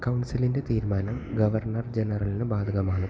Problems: constant background noise, low volume